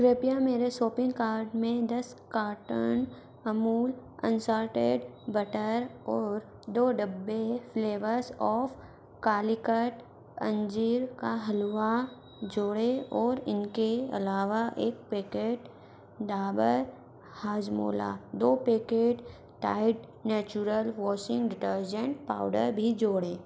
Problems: constant background noise